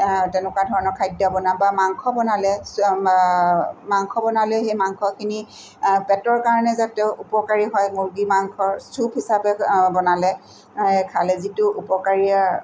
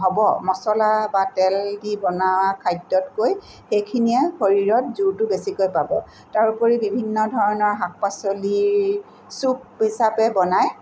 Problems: none marked